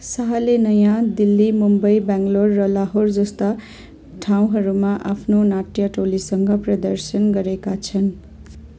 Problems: none marked